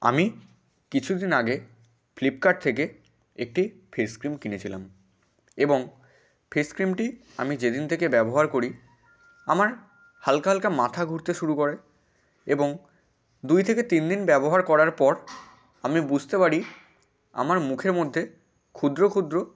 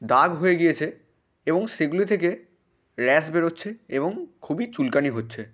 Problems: constant background noise